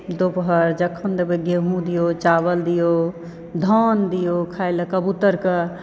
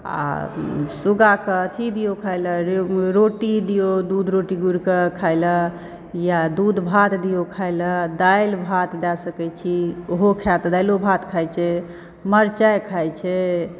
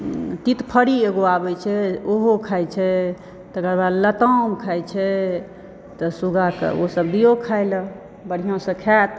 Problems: background sounds at intervals